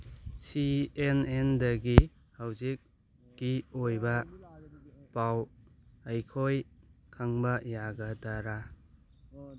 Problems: background sounds at intervals, background conversations at intervals